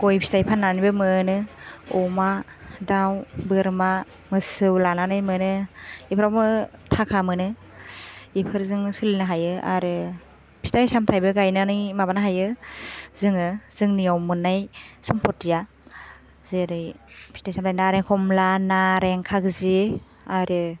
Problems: none marked